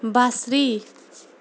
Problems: constant background noise